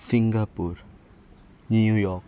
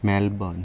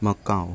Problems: background sounds at intervals